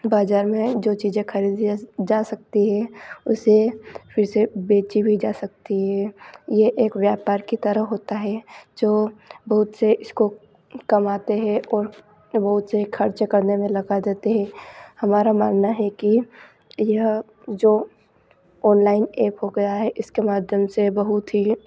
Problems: constant background noise